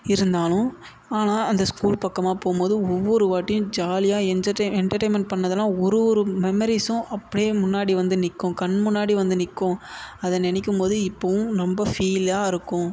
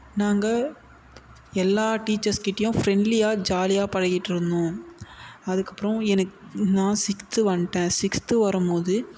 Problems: none marked